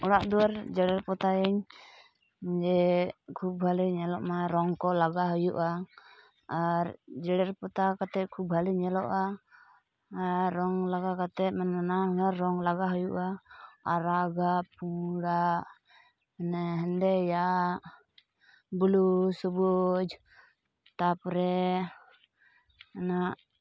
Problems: background sounds at intervals